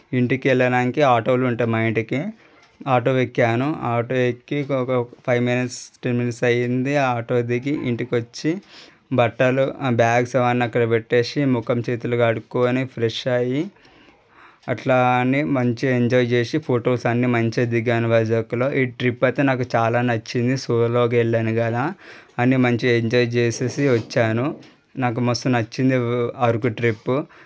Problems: none marked